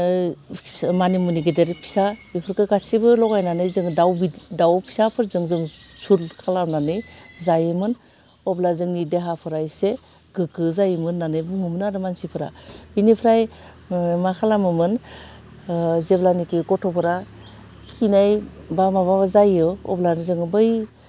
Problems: none marked